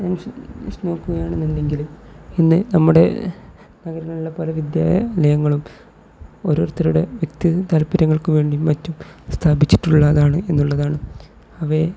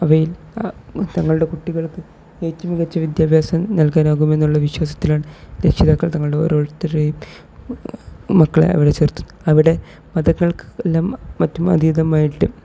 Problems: background sounds at intervals, low volume